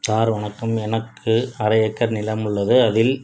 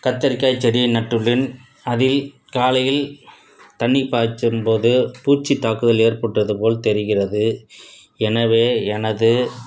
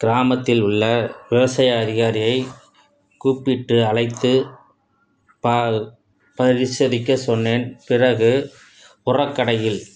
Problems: none marked